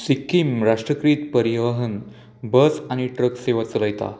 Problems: constant background noise